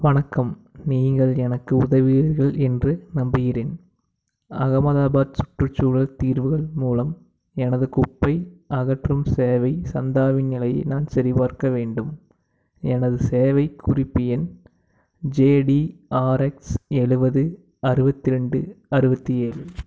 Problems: background sounds at intervals